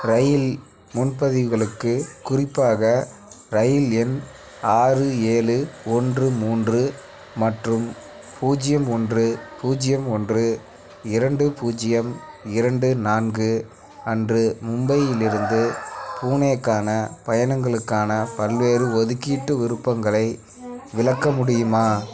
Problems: none marked